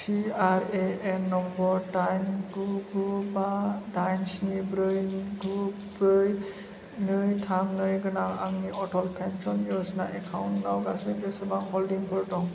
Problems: constant background noise